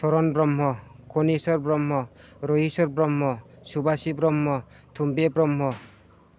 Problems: none marked